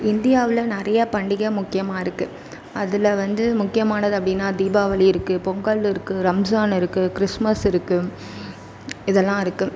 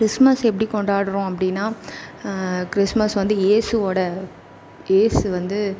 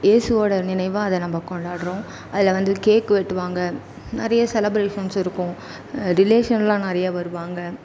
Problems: none marked